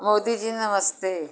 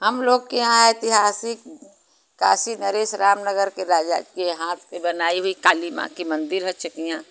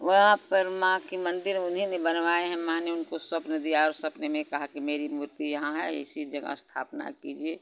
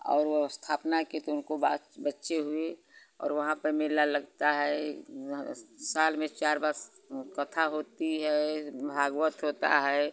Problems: constant background noise